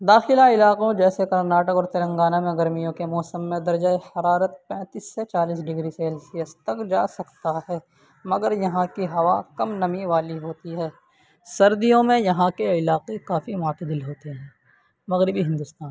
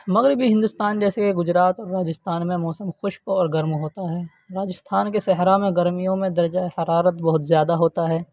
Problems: constant background noise